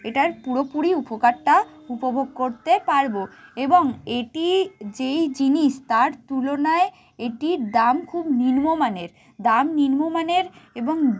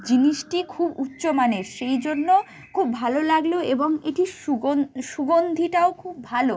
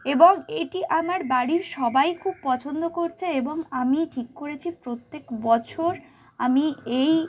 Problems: constant background noise